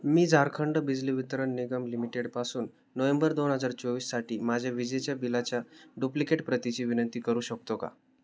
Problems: none marked